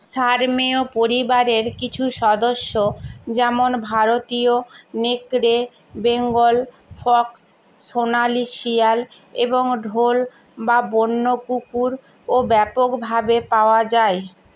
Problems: constant background noise